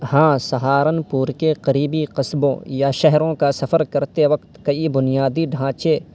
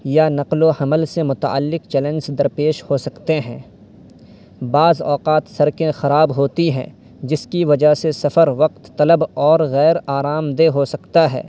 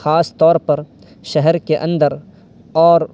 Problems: constant background noise